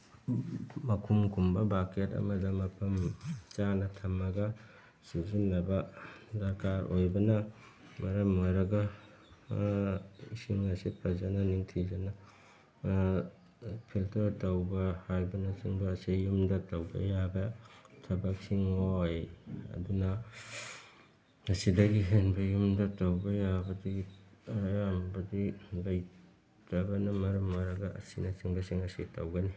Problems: background sounds at intervals